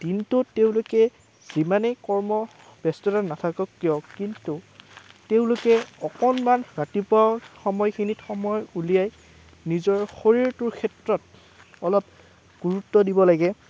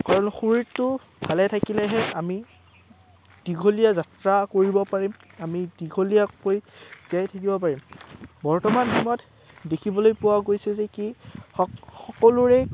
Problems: background sounds at intervals